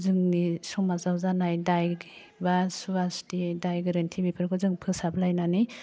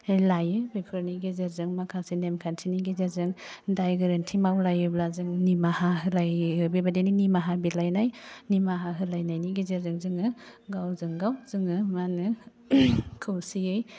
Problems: constant background noise